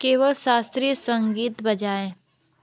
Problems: none marked